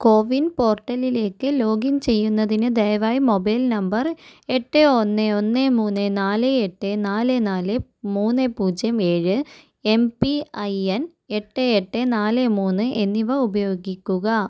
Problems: none marked